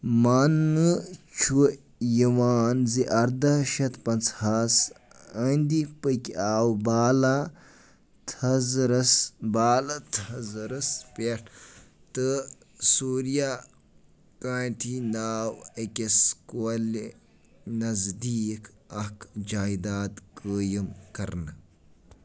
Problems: none marked